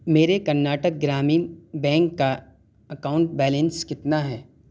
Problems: constant background noise